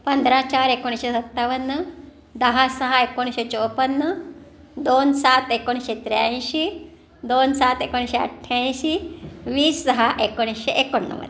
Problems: background sounds at intervals